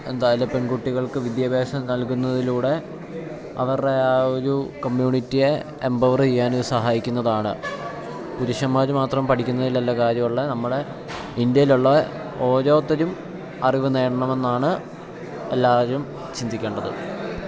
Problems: background conversations at intervals, low volume